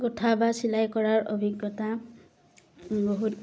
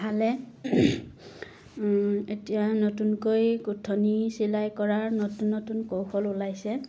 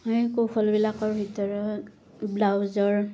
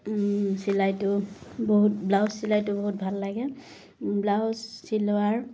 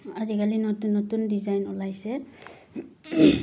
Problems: constant background noise